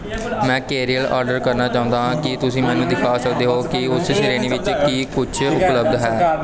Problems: continuous background conversations